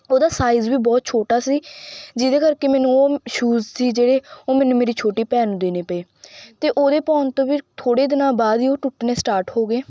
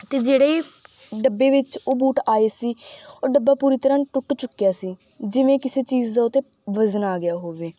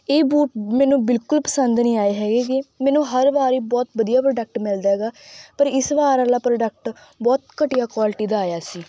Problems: background sounds at intervals